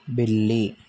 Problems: none marked